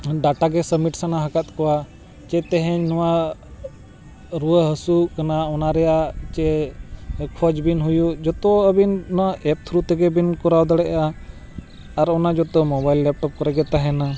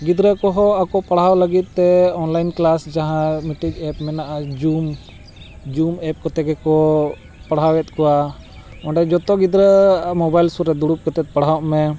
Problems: constant background noise